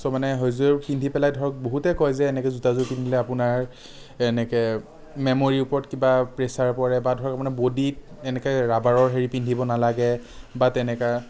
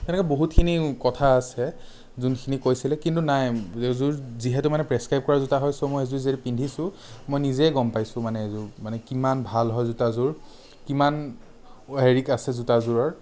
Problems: none marked